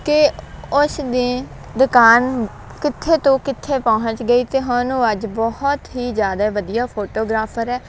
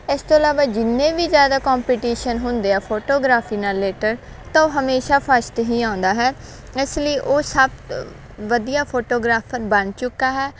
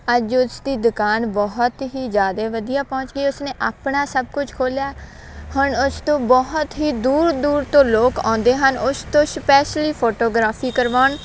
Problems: none marked